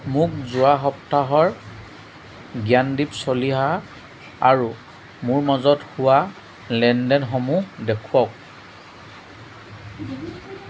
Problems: none marked